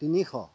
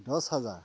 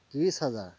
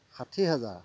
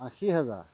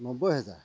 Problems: constant background noise, low volume